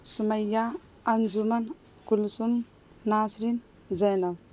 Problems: constant background noise